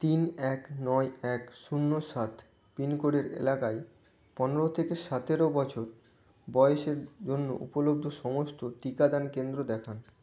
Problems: constant background noise